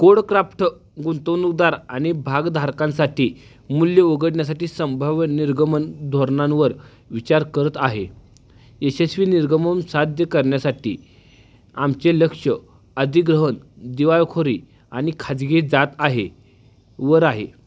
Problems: background sounds at intervals